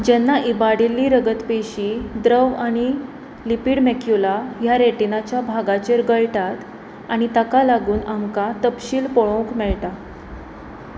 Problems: constant background noise